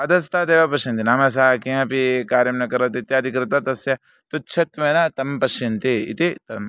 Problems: none marked